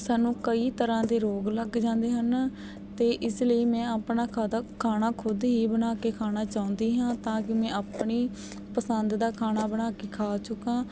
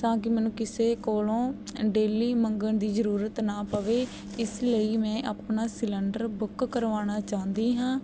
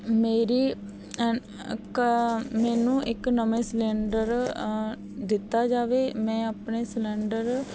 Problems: background sounds at intervals